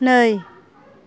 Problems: background conversations at intervals